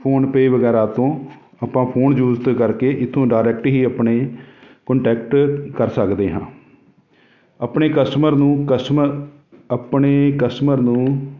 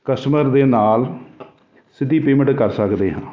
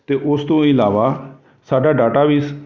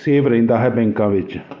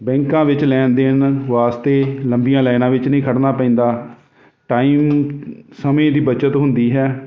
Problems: none marked